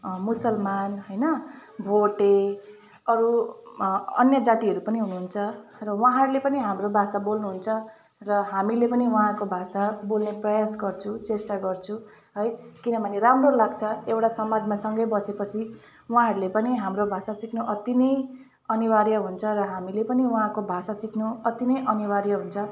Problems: none marked